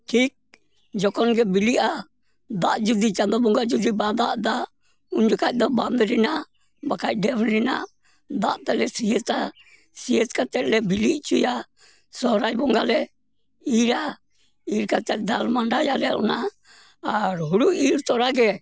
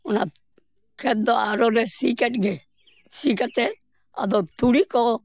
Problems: none marked